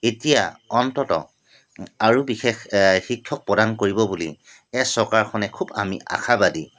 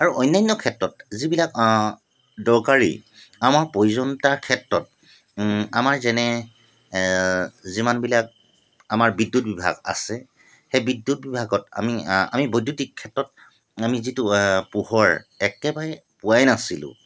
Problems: constant background noise